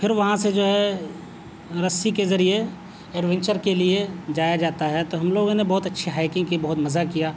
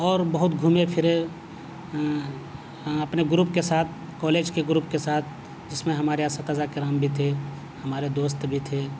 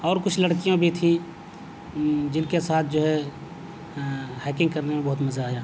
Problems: constant background noise